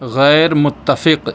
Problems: none marked